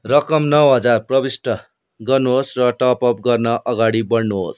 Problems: none marked